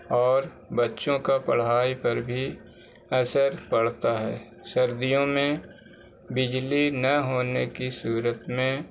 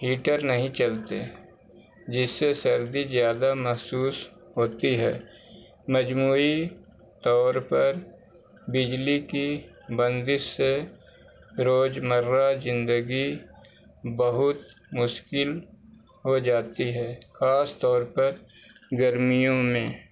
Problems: constant background noise